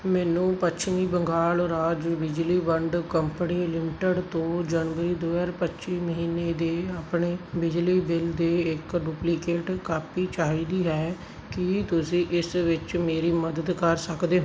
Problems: background sounds at intervals